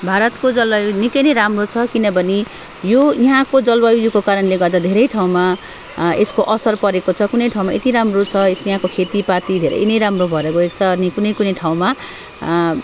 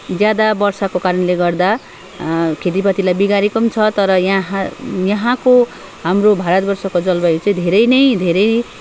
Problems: constant background noise